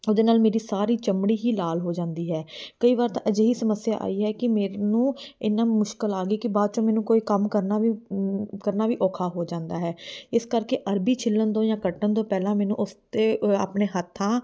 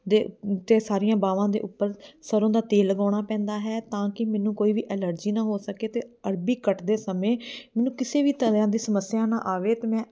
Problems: background sounds at intervals